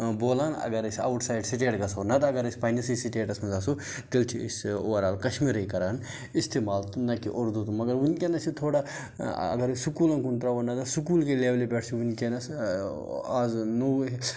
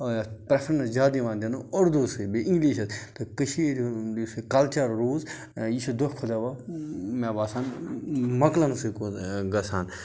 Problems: background sounds at intervals